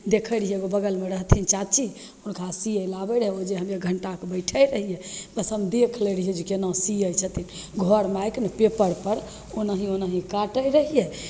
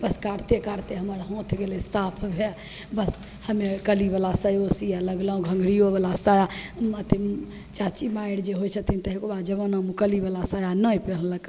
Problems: none marked